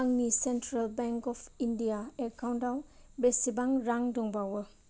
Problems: low volume